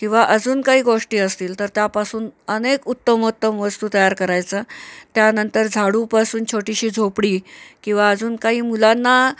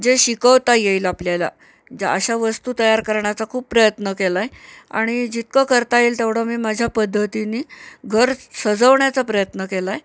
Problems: constant background noise